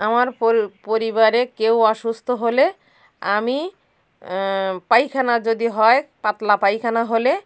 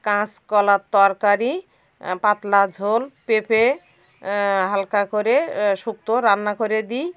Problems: constant background noise